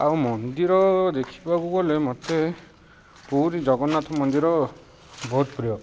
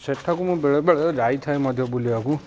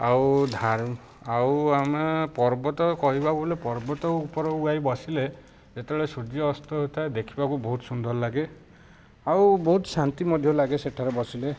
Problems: constant background noise, background conversations at intervals